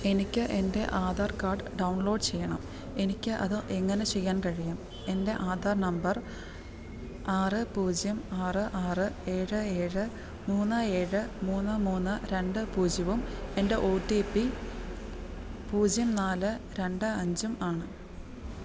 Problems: low volume